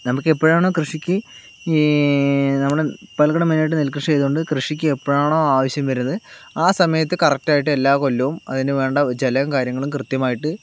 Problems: none marked